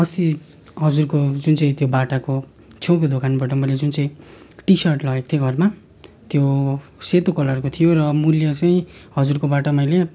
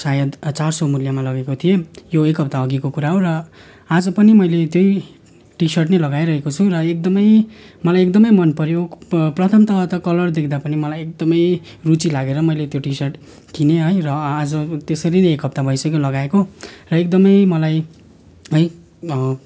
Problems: constant background noise, continuous background conversations